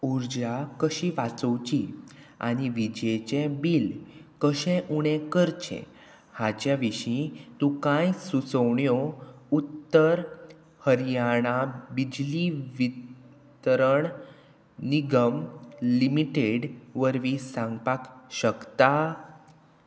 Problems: none marked